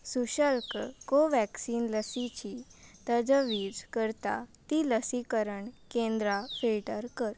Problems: background sounds at intervals